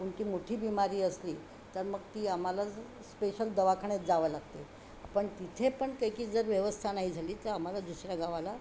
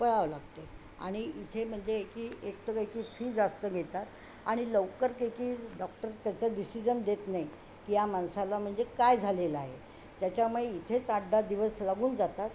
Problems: constant background noise